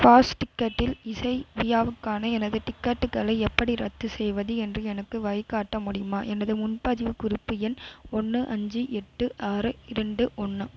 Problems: constant background noise